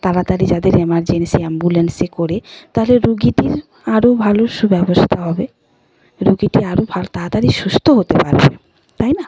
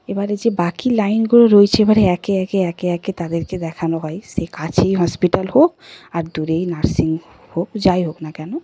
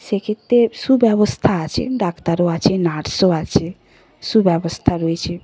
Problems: none marked